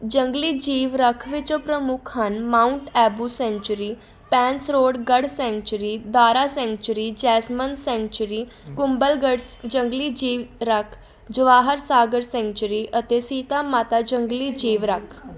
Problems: constant background noise, background conversations at intervals